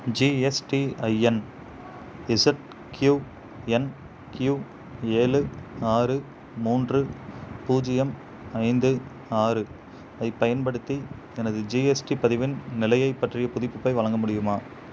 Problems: none marked